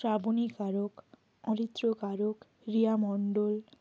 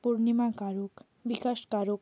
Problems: constant background noise